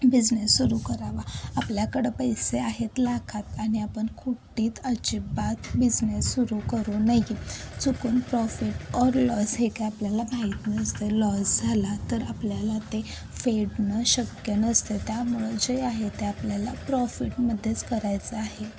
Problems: constant background noise, background conversations at intervals